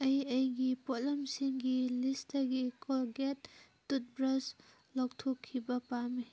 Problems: background sounds at intervals